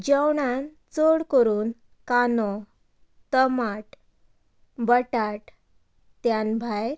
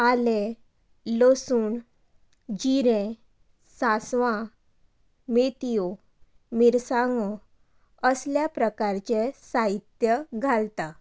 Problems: background conversations at intervals